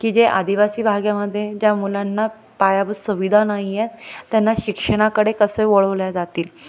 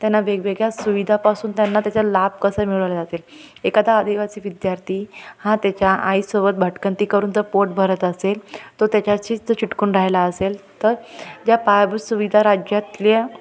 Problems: constant background noise, background conversations at intervals, echo